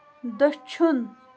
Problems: continuous background conversations